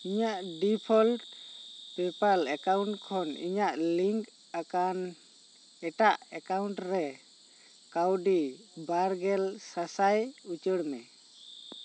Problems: constant background noise